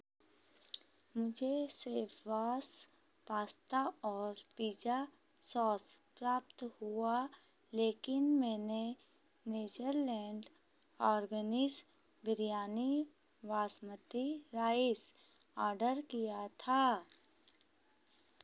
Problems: none marked